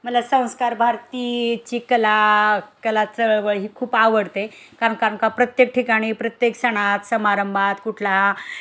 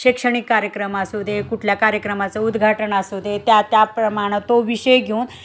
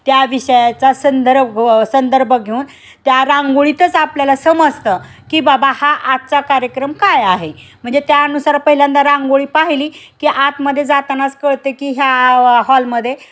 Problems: none marked